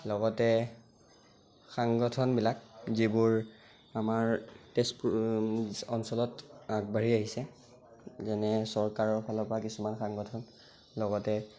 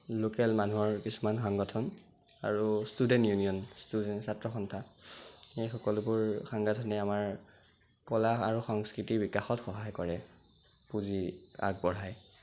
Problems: constant background noise